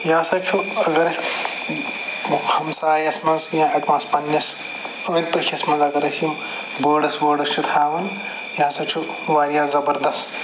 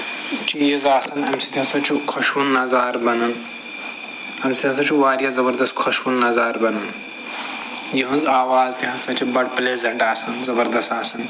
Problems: constant background noise, background conversations at intervals